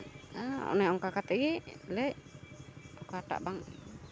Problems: constant background noise